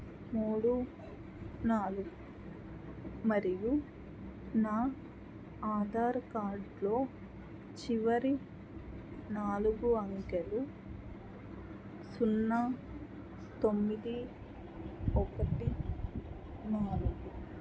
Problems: low volume